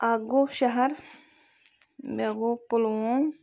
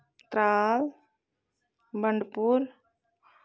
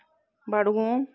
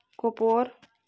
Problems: constant background noise